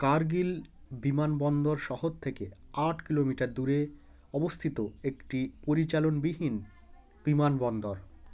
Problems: none marked